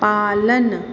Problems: constant background noise